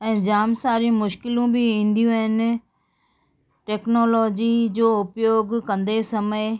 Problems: background sounds at intervals, background conversations at intervals